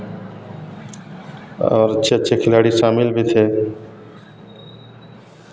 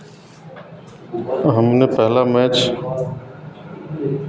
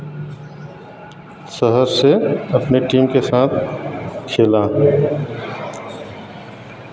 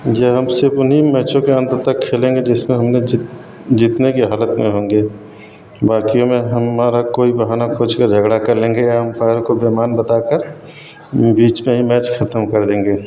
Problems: background sounds at intervals